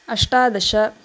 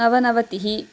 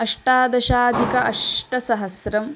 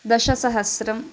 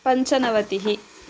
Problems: constant background noise